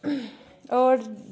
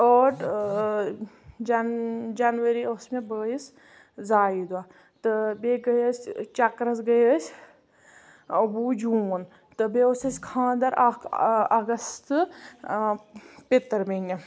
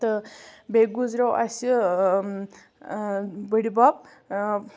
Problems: background sounds at intervals